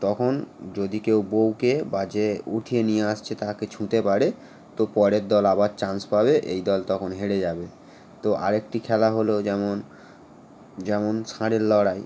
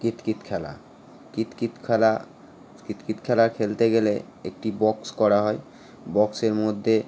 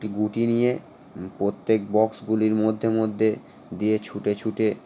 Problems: none marked